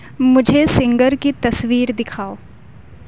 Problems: constant background noise